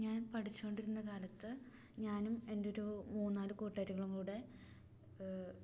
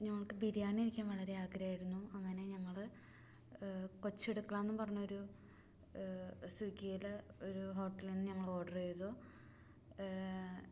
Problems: low volume